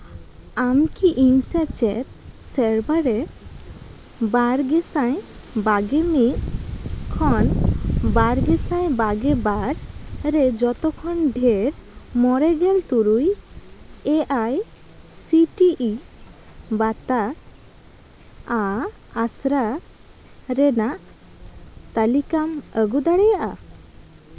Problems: constant background noise, background conversations at intervals